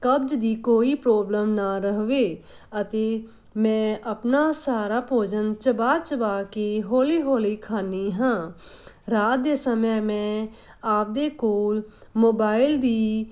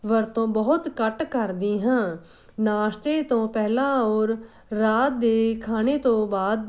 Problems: none marked